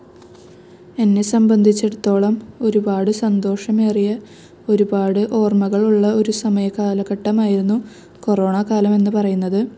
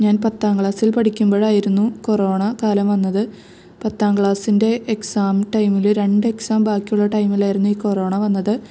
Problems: none marked